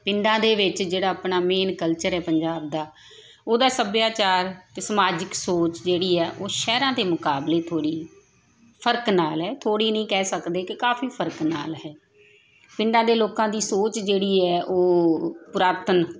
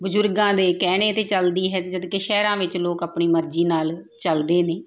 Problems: continuous background conversations